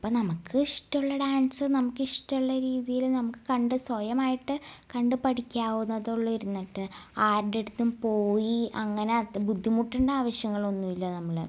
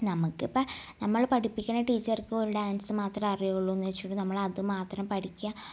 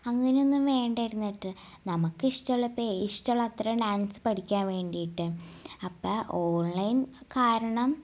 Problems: none marked